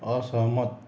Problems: none marked